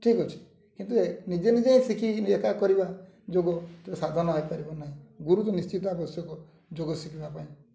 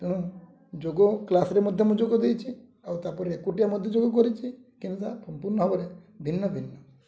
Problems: low volume